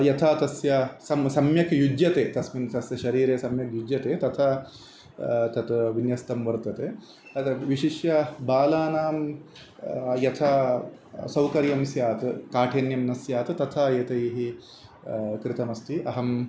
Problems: constant background noise